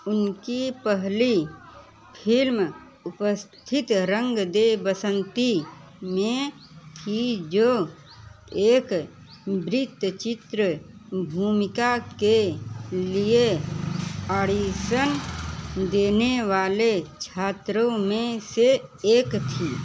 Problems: constant background noise, continuous background conversations